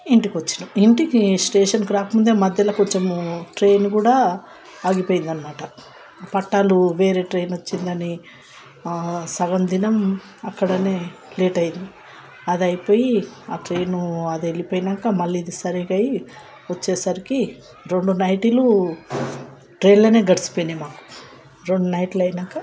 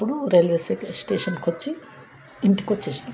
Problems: none marked